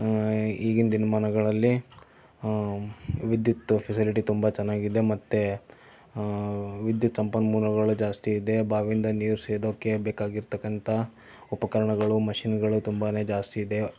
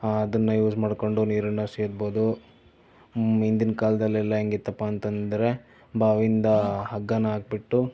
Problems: none marked